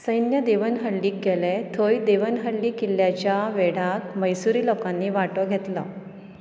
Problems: none marked